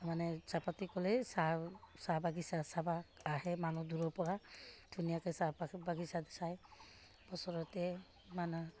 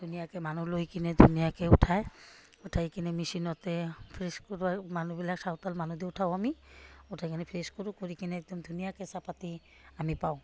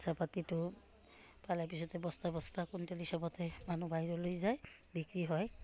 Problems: none marked